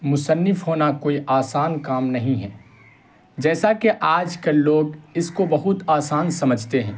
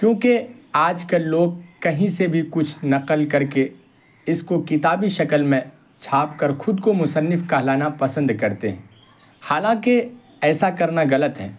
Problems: constant background noise